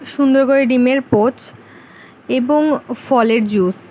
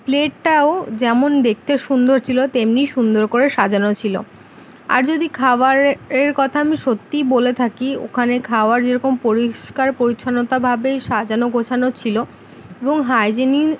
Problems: constant background noise